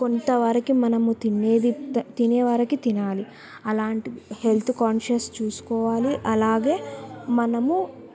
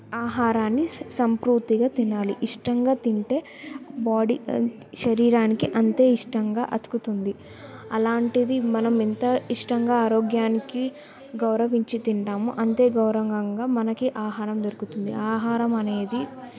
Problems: background conversations at intervals